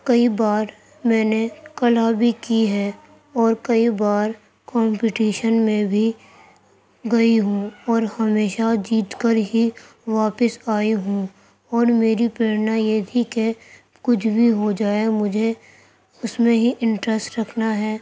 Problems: constant background noise